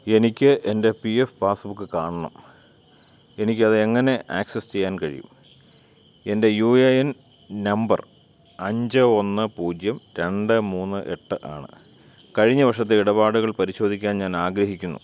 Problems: none marked